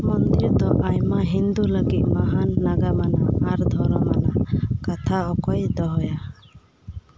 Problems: none marked